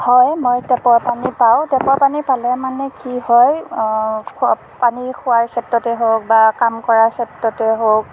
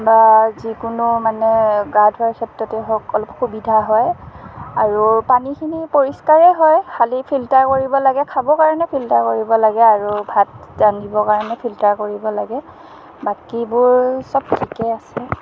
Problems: constant background noise